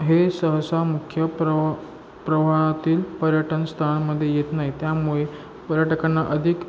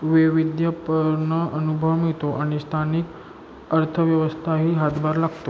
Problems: constant background noise